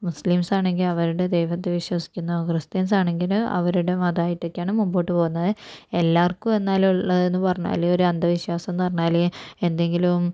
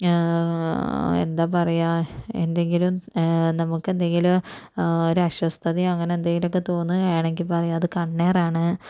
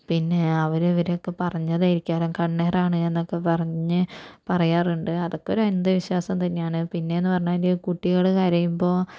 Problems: none marked